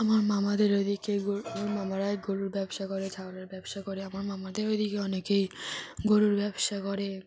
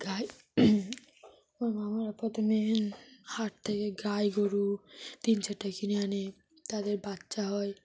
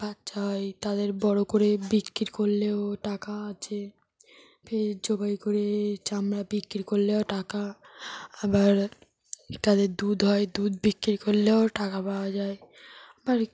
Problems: none marked